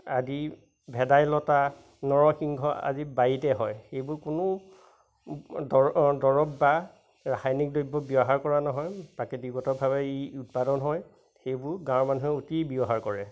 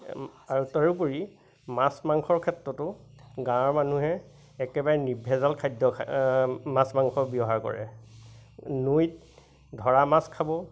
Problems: constant background noise, background conversations at intervals